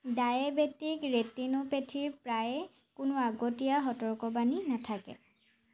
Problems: constant background noise